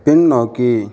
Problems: background sounds at intervals